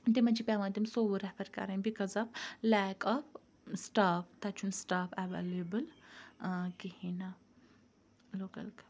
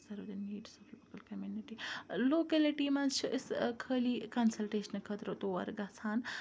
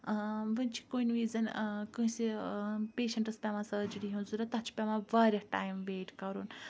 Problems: background conversations at intervals